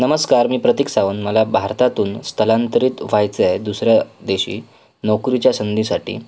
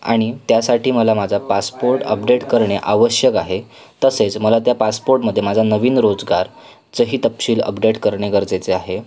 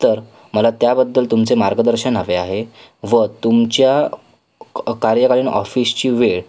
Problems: constant background noise, continuous background conversations